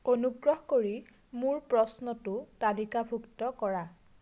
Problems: none marked